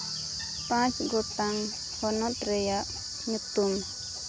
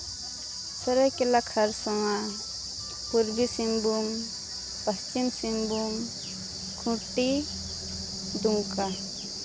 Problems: constant background noise